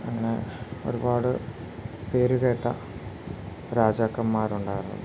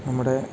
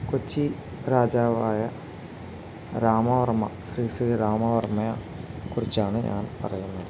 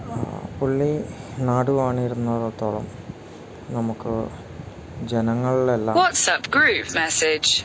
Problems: constant background noise